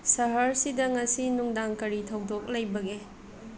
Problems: background conversations at intervals